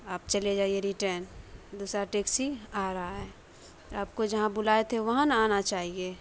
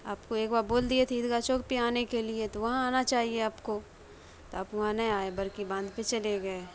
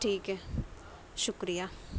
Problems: constant background noise, background conversations at intervals